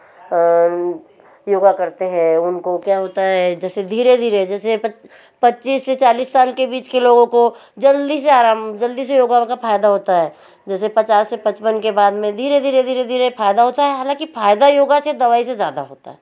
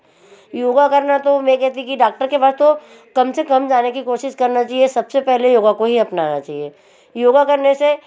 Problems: constant background noise